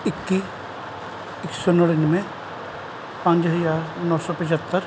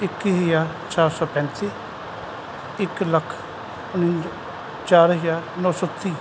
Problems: none marked